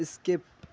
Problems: none marked